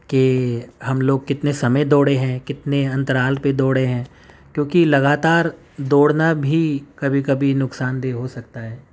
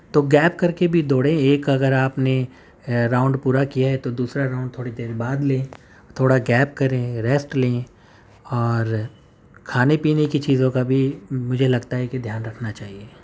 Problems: none marked